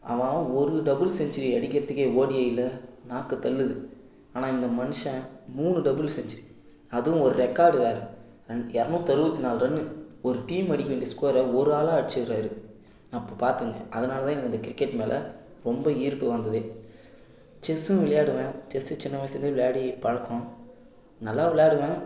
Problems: background sounds at intervals